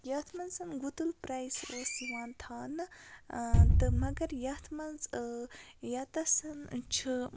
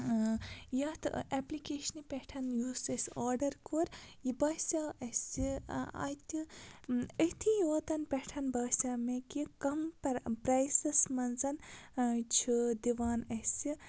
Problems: constant background noise